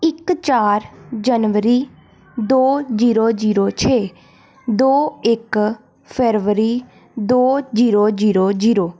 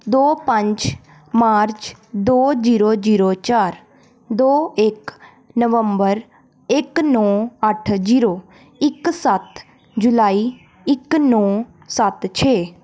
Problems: background sounds at intervals